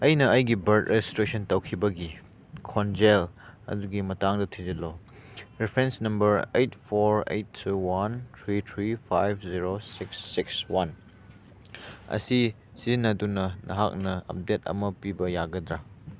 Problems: none marked